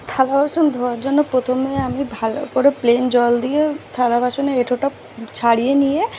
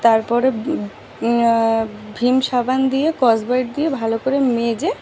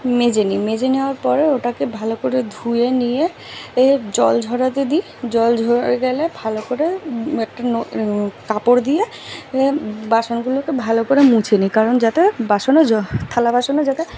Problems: background sounds at intervals